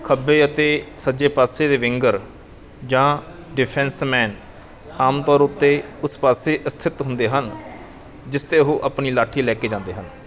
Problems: continuous background conversations